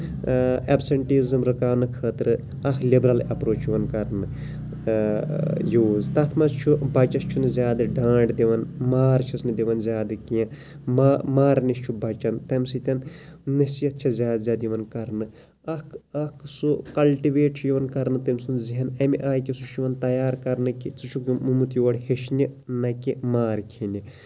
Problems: low volume